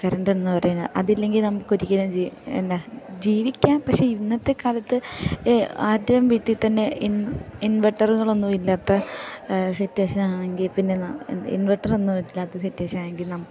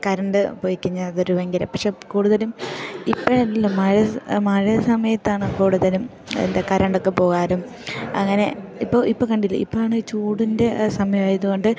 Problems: low volume